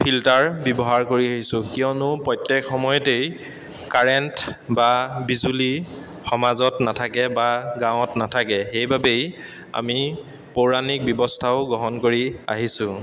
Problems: constant background noise